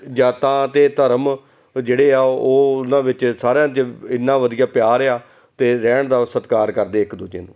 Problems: constant background noise, continuous background conversations